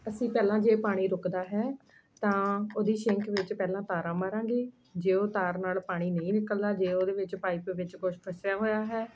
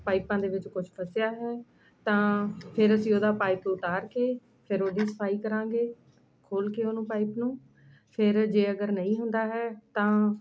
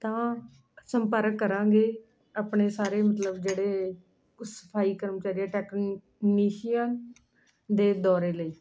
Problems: constant background noise